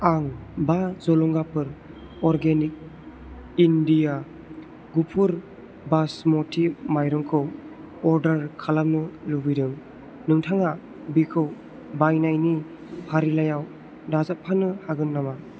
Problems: constant background noise